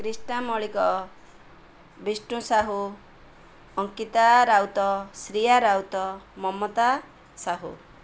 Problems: none marked